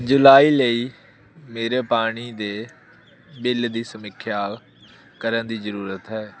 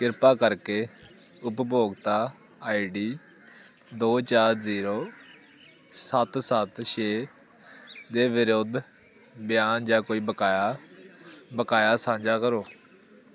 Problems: none marked